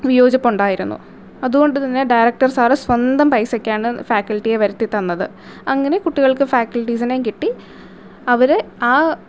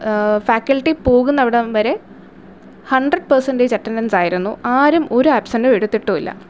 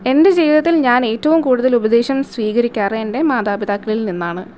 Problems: none marked